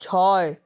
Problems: constant background noise